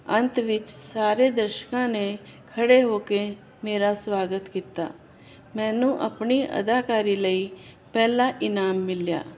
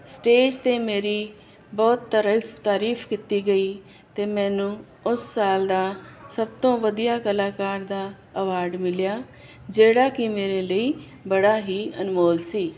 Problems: constant background noise